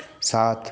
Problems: background sounds at intervals